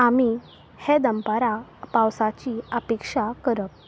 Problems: constant background noise